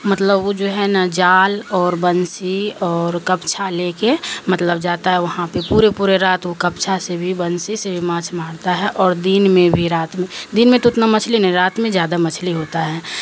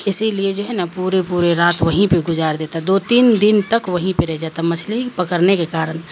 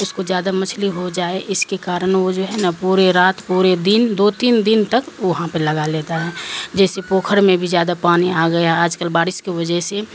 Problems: constant background noise